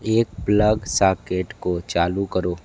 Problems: constant background noise